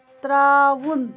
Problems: constant background noise